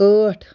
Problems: none marked